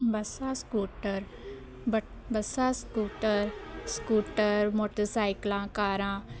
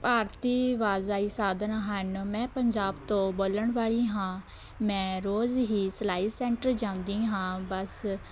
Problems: none marked